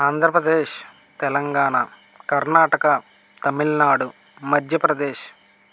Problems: constant background noise